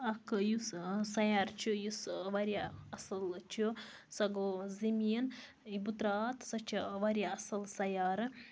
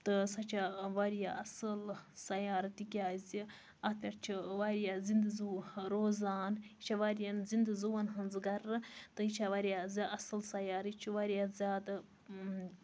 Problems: none marked